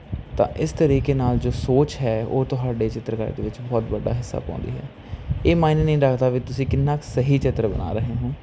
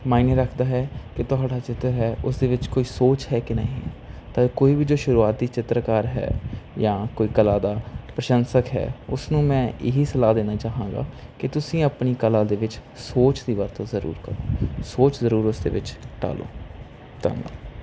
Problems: constant background noise